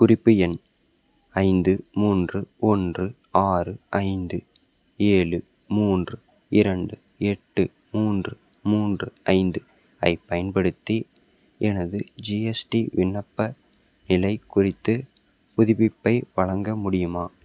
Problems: none marked